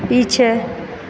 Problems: none marked